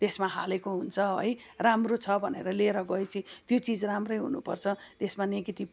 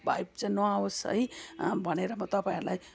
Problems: background sounds at intervals, continuous background conversations